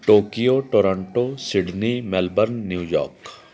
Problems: background sounds at intervals